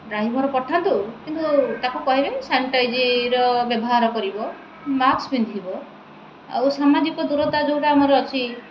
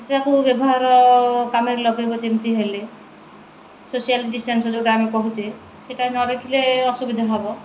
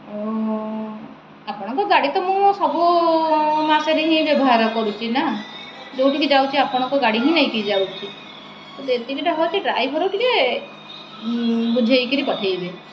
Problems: constant background noise